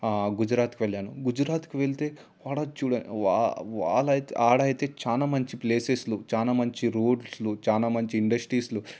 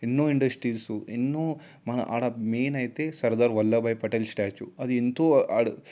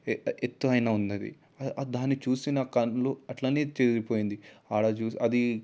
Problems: background sounds at intervals